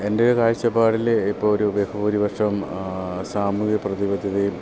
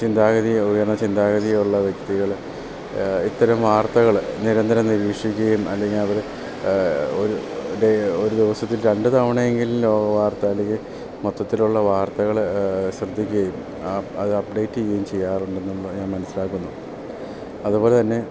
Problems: constant background noise, low volume